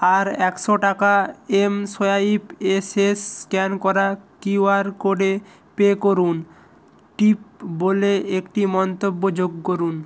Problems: constant background noise